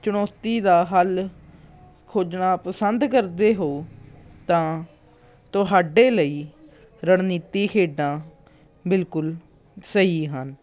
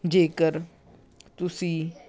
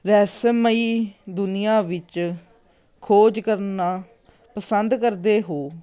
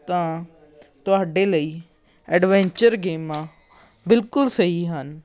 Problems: background conversations at intervals